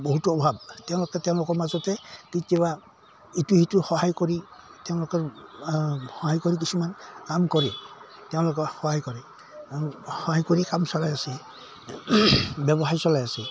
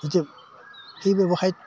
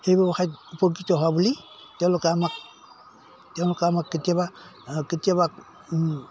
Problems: background sounds at intervals